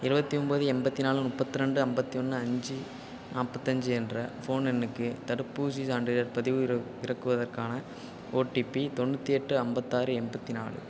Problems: constant background noise